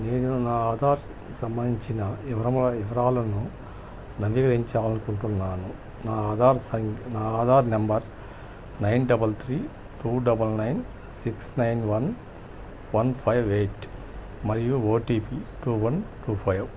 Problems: none marked